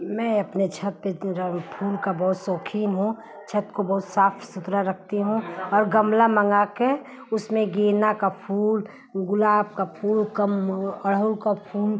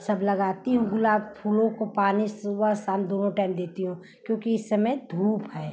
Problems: constant background noise